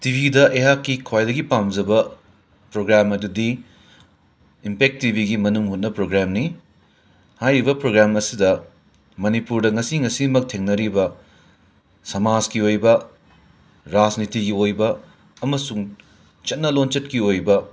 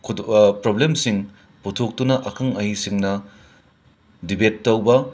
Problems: background sounds at intervals